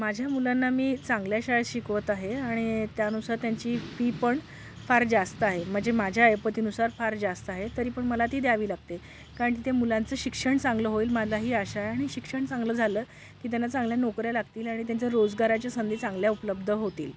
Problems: background sounds at intervals